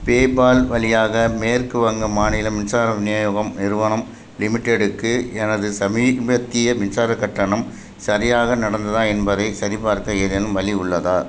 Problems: constant background noise